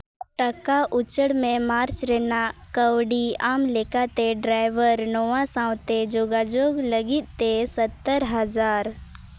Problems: constant background noise